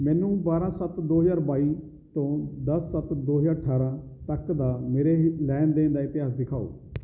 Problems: none marked